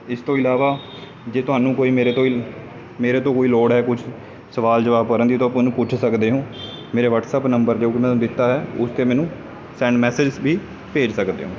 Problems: constant background noise